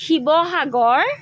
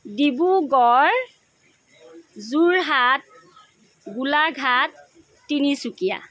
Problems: constant background noise